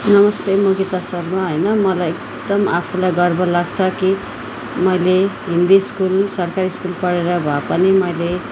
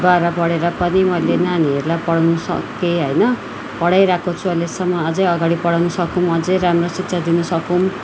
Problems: background sounds at intervals